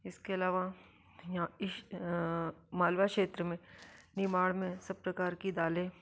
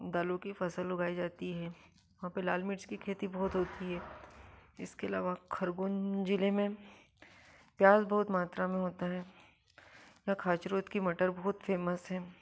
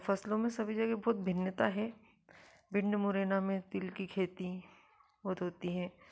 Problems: low volume